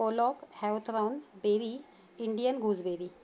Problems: background sounds at intervals